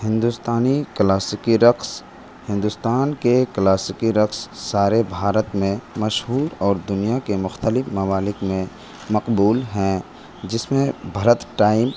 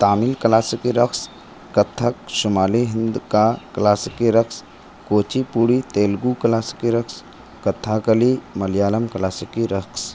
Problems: constant background noise